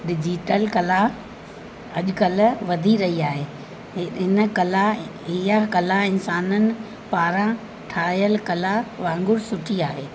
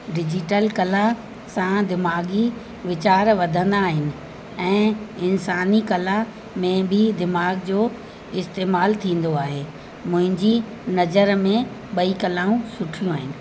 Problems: constant background noise